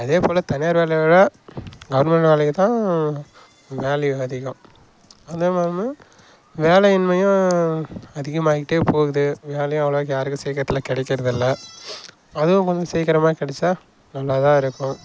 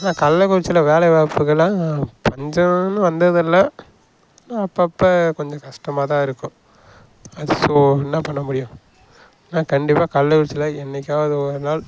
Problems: background sounds at intervals